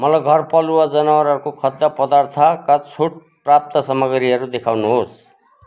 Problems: background sounds at intervals